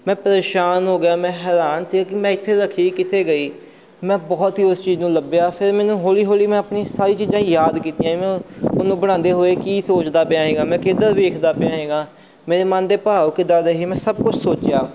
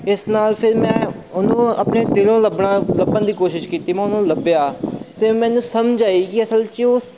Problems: background sounds at intervals